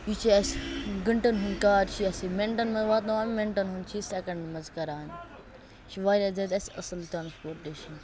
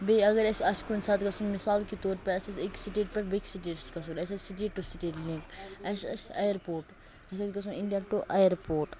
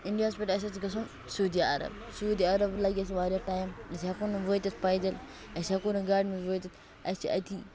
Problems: constant background noise